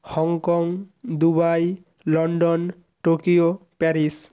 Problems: constant background noise